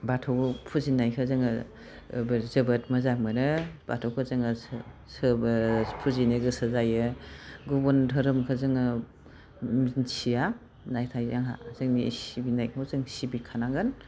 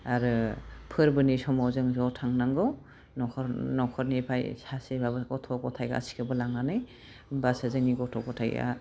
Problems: none marked